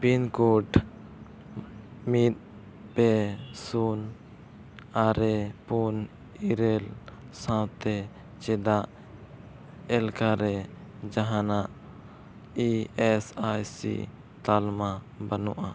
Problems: none marked